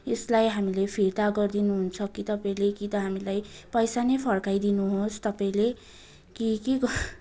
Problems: continuous background conversations